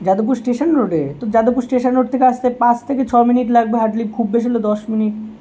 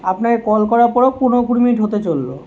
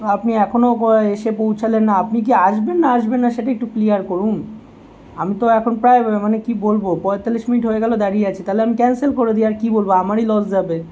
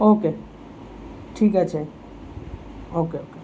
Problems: constant background noise